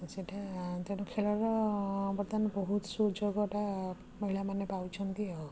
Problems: none marked